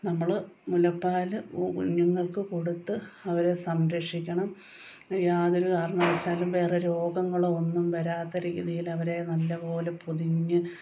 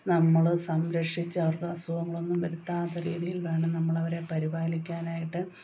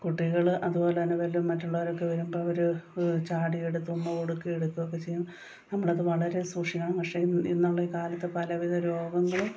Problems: background sounds at intervals